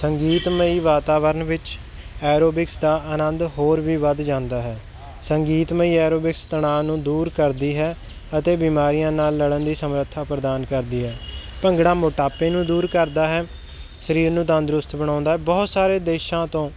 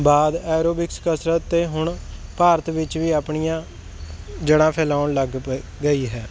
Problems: background sounds at intervals